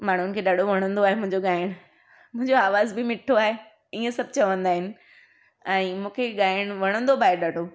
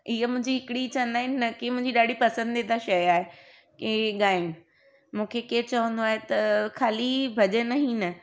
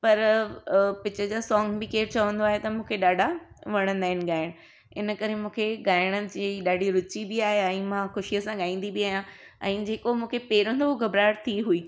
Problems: background sounds at intervals